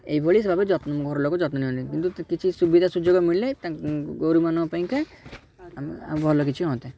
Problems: background sounds at intervals, background conversations at intervals